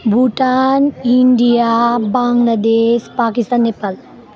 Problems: constant background noise